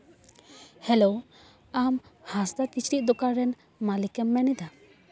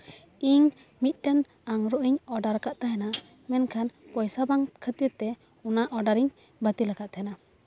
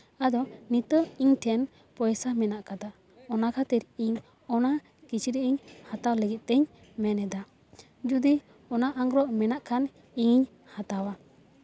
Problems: background sounds at intervals